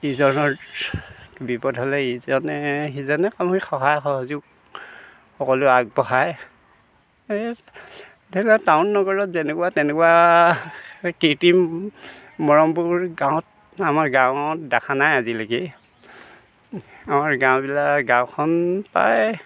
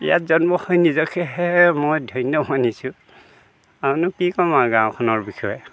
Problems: background conversations at intervals